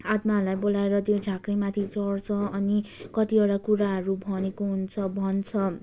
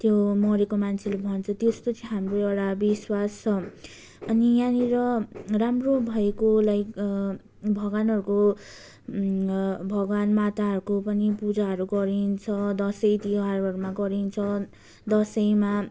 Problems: background sounds at intervals, continuous background conversations